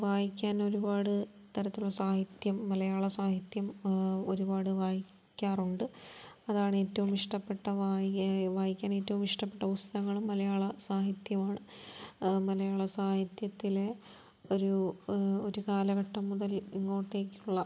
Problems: low volume